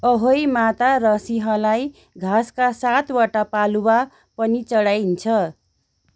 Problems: background sounds at intervals